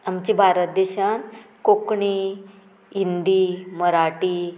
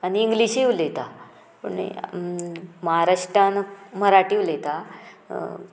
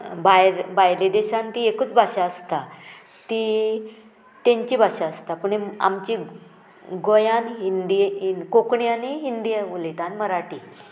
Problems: none marked